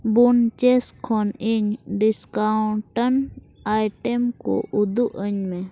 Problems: none marked